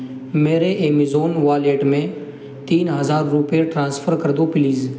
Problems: constant background noise